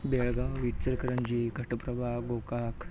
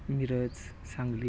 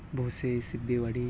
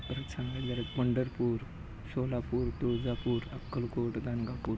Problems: constant background noise